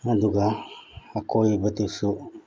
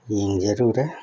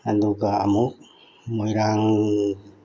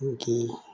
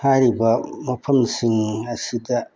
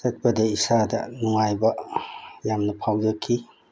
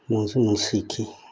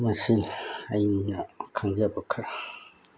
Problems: none marked